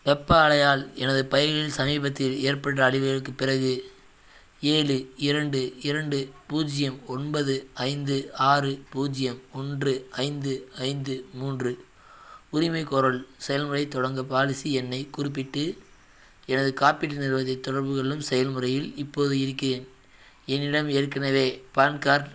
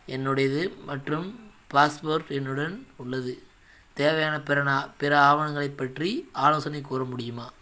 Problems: background sounds at intervals